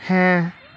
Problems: background conversations at intervals